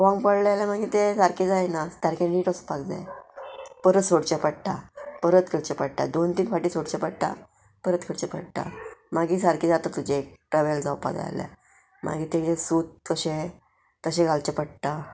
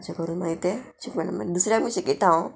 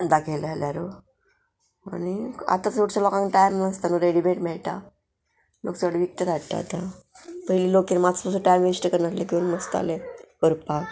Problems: none marked